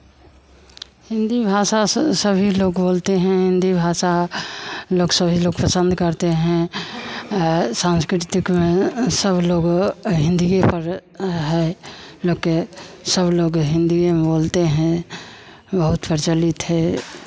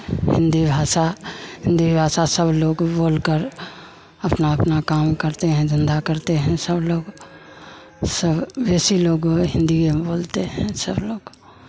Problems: constant background noise, background conversations at intervals